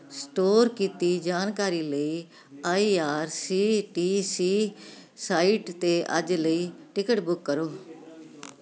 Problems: none marked